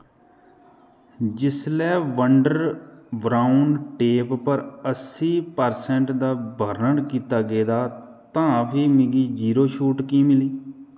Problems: echo